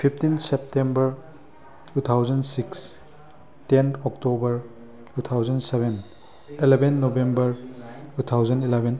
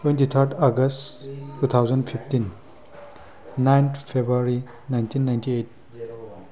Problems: background conversations at intervals